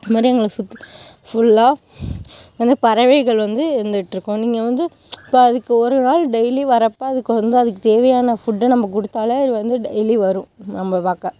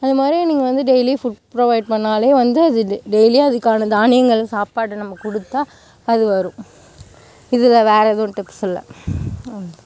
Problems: background sounds at intervals